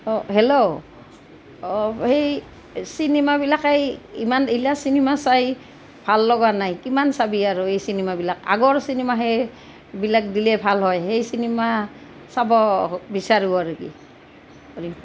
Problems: constant background noise